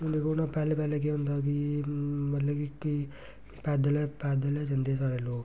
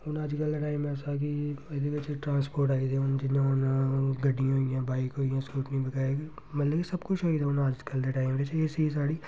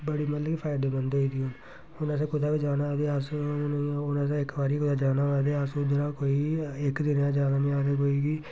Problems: none marked